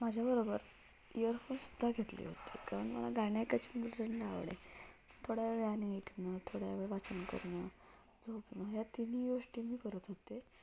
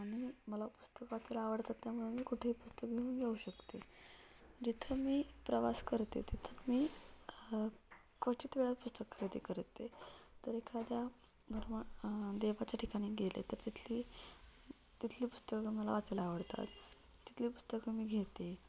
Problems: none marked